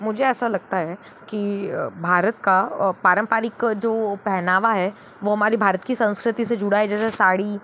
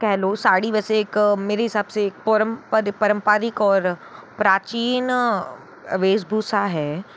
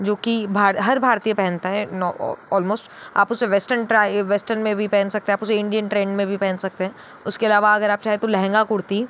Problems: constant background noise